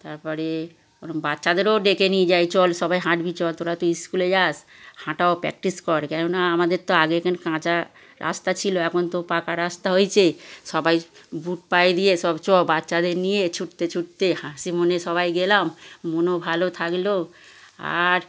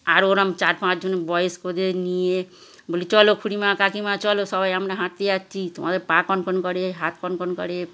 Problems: constant background noise, background conversations at intervals